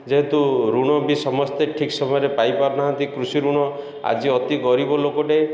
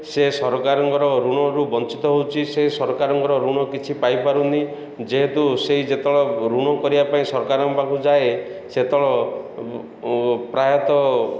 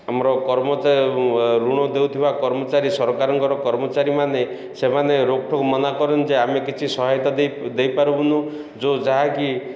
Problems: none marked